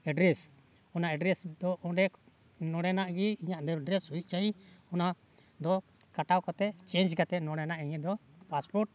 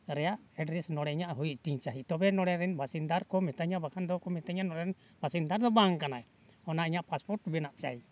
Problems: background sounds at intervals